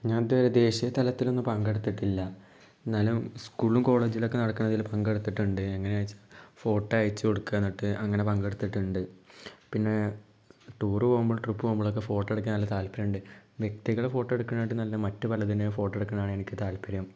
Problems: low volume